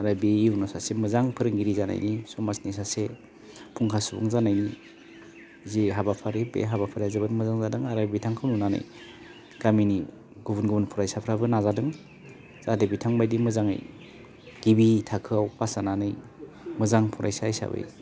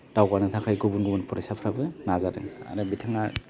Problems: constant background noise